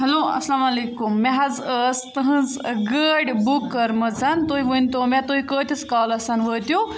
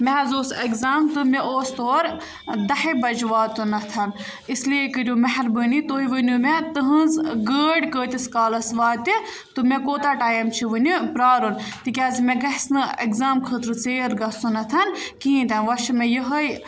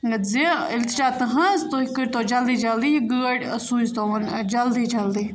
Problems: none marked